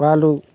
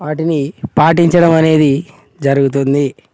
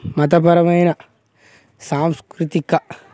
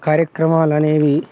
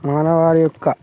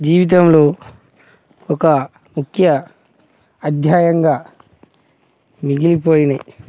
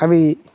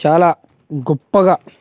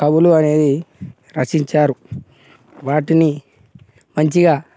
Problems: constant background noise, background conversations at intervals